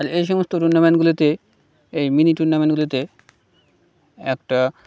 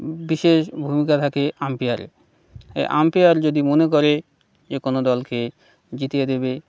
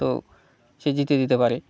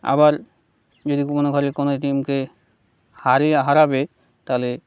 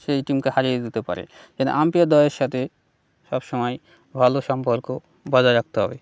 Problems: background sounds at intervals